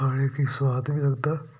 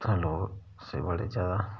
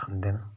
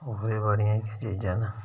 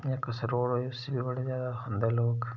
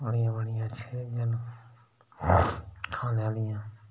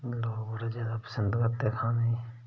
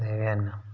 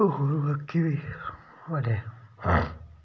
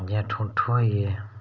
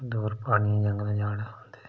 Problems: background sounds at intervals, low volume